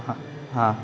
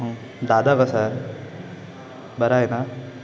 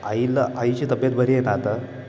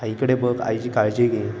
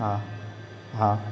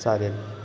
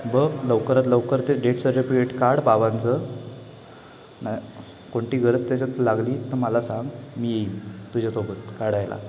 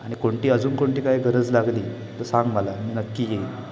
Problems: constant background noise, background conversations at intervals